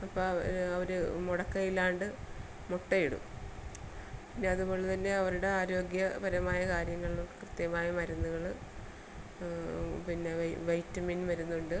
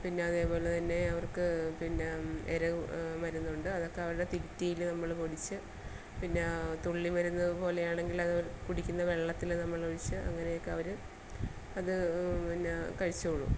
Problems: background sounds at intervals, low volume